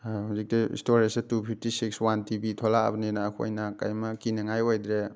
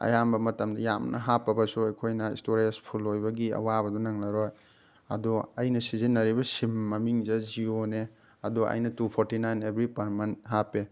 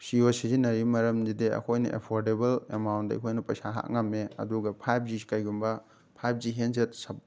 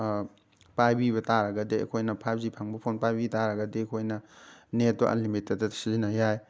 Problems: background sounds at intervals